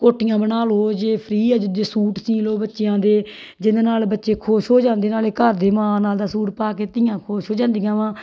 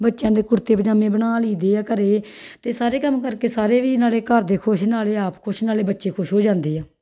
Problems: background sounds at intervals